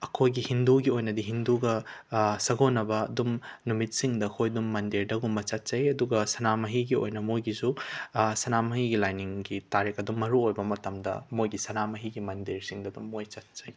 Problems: none marked